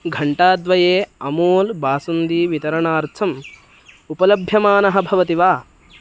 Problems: constant background noise